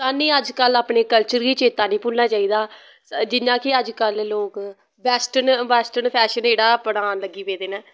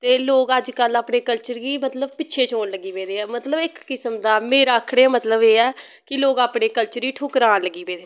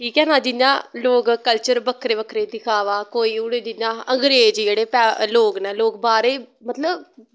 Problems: none marked